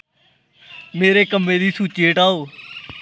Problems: background sounds at intervals